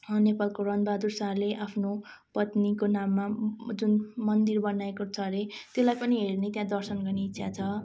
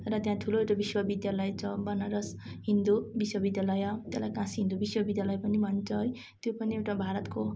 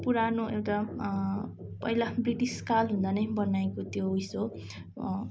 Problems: constant background noise, continuous background conversations